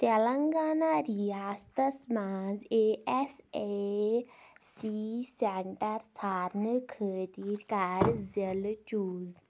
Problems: none marked